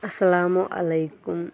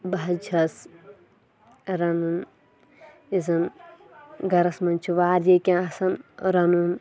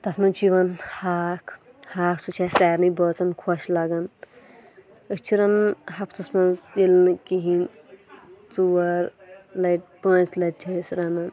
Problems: background sounds at intervals, background conversations at intervals